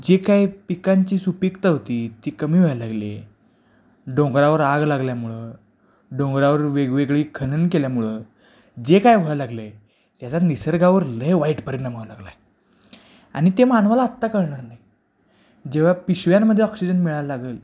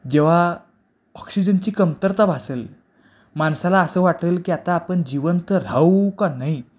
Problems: background sounds at intervals